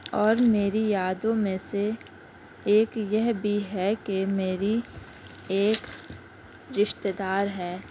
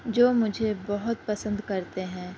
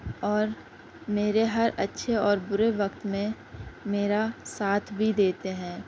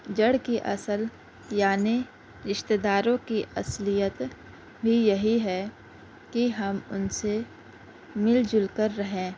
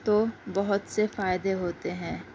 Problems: constant background noise, low volume